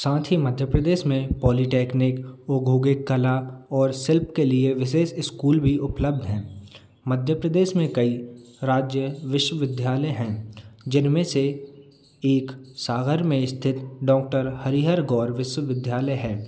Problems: none marked